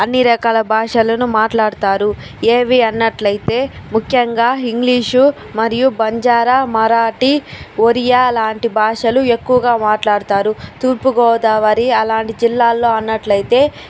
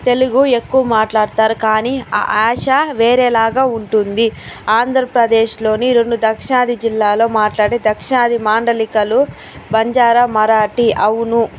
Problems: constant background noise